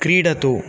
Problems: constant background noise